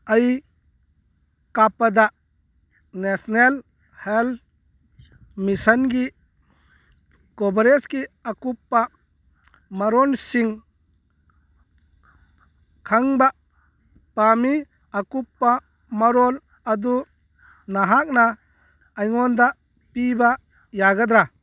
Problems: background sounds at intervals, background conversations at intervals